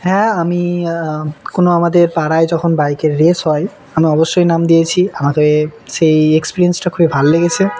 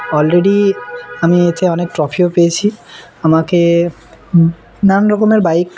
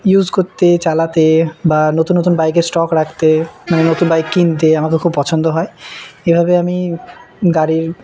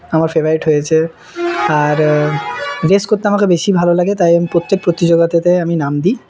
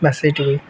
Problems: background sounds at intervals